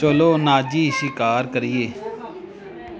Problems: background sounds at intervals, background conversations at intervals